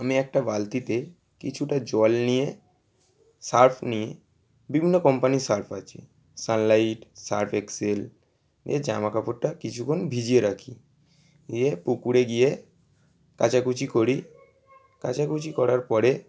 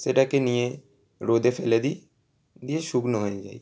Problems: constant background noise